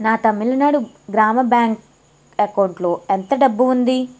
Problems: none marked